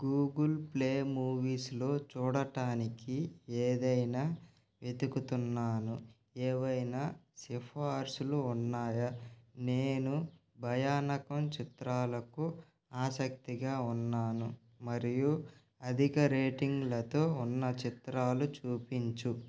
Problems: constant background noise